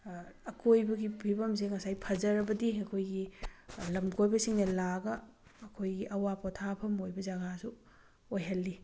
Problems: background sounds at intervals